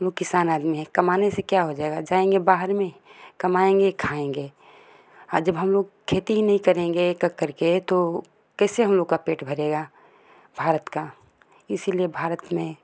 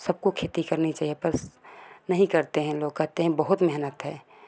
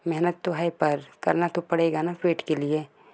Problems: constant background noise